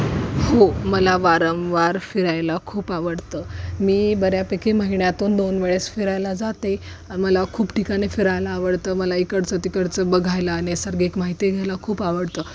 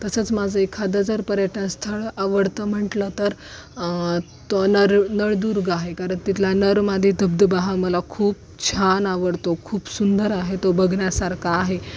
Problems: none marked